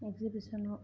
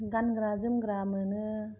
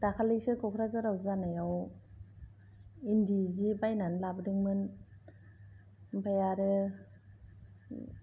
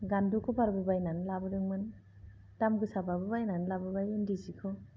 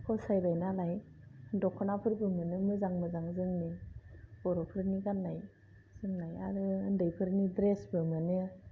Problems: low volume